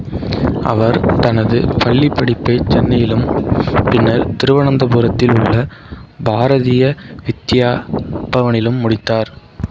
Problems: background sounds at intervals